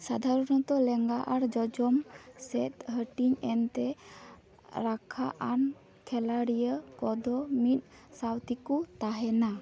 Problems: background sounds at intervals